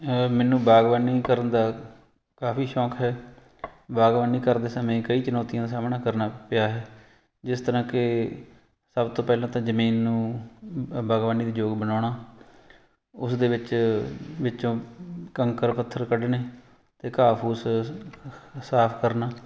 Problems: background sounds at intervals